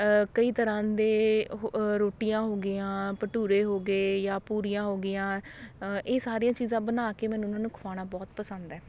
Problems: none marked